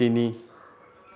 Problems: background conversations at intervals